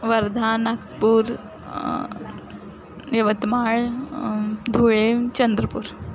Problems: none marked